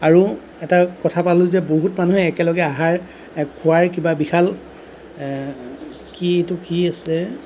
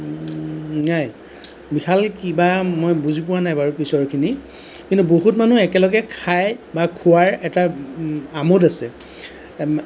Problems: none marked